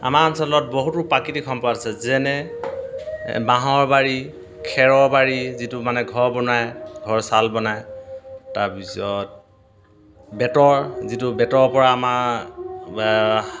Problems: none marked